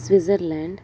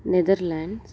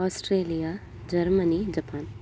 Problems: constant background noise